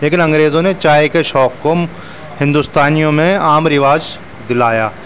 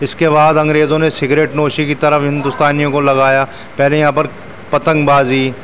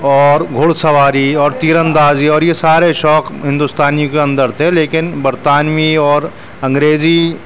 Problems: constant background noise